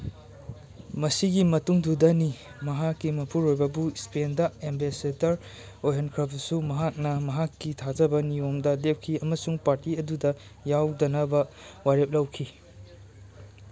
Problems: background sounds at intervals